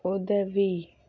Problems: low volume